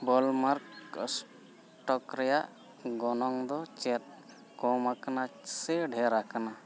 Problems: background sounds at intervals